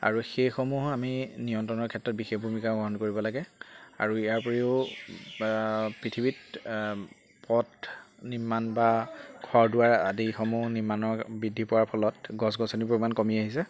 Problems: constant background noise, background conversations at intervals